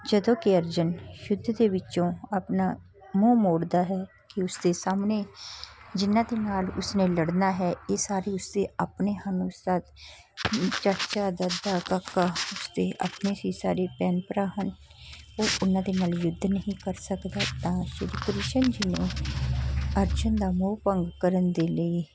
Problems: none marked